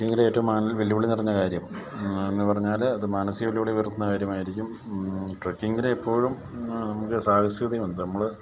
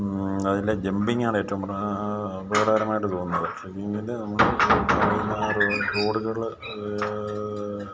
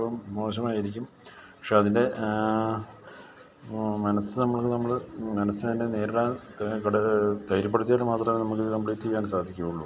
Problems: none marked